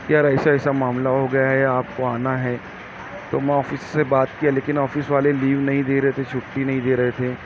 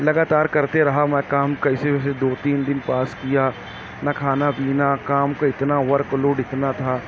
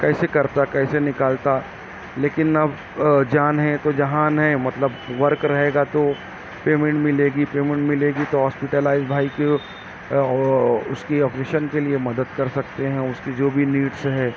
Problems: background sounds at intervals